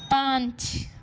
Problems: none marked